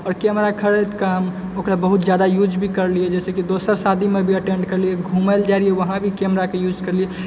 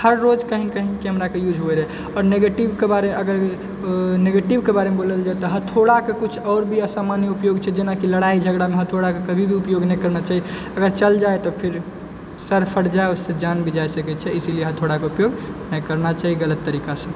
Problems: background sounds at intervals